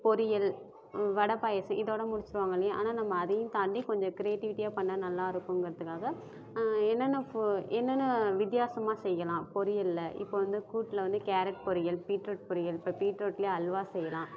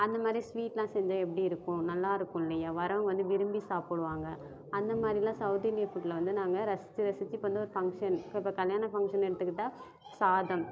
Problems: none marked